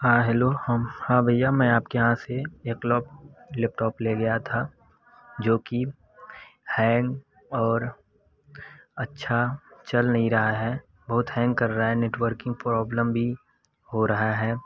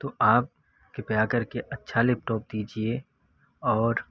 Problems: constant background noise